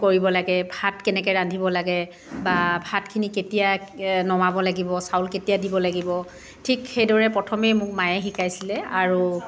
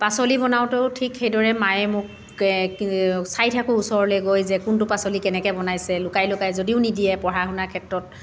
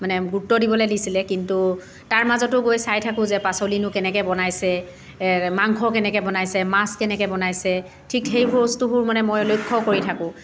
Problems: continuous background conversations